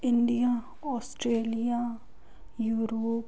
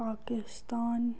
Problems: none marked